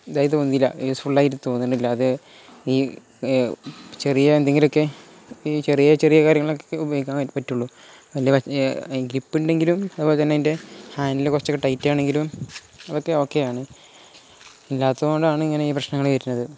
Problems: none marked